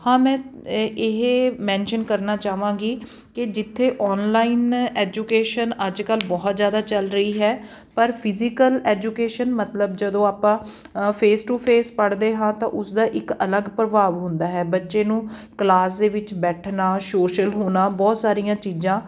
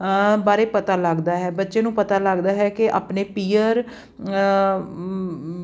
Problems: background sounds at intervals